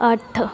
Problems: background conversations at intervals